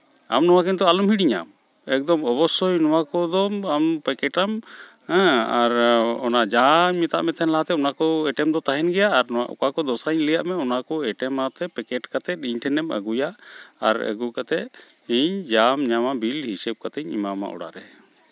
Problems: none marked